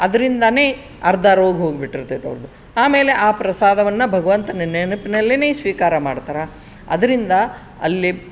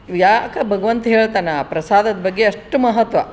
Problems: background sounds at intervals